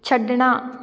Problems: none marked